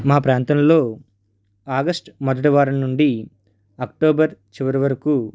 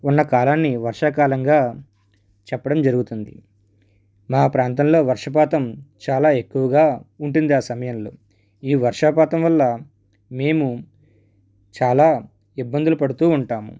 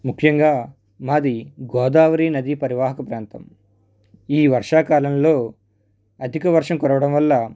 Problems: background sounds at intervals